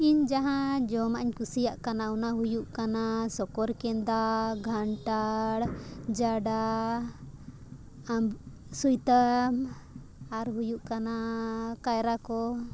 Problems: constant background noise